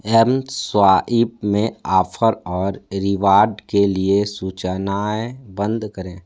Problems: none marked